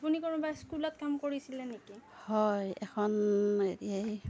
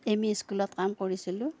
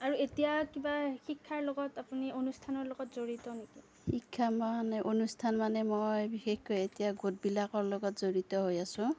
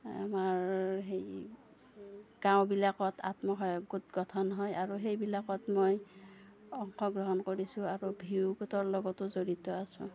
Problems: low volume